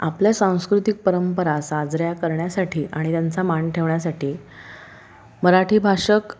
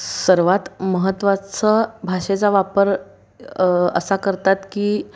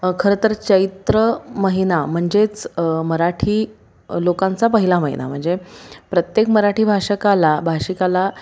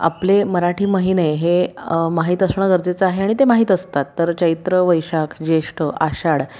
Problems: background sounds at intervals